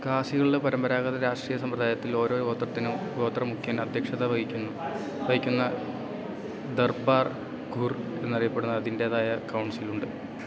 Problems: none marked